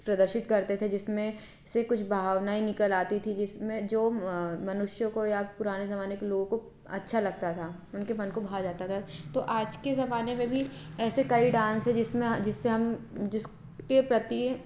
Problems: none marked